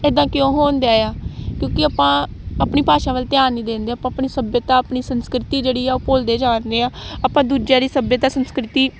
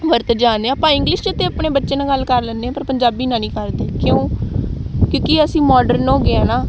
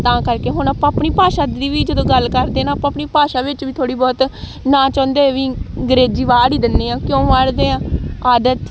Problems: none marked